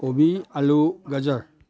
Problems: none marked